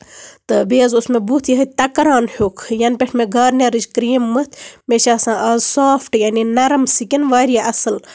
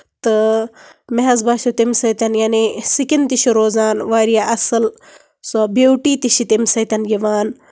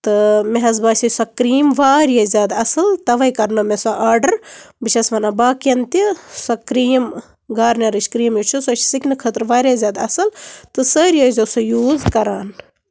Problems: none marked